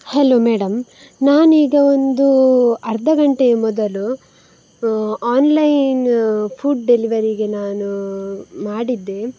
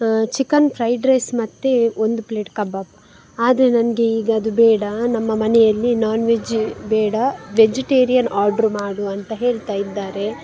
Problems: background sounds at intervals